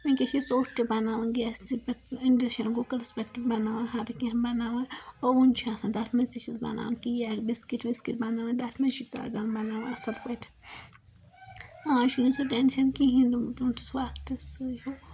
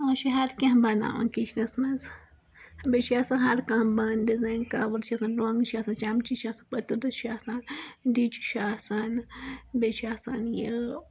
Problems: background sounds at intervals